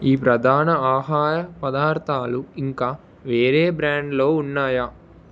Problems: none marked